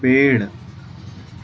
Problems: constant background noise, background conversations at intervals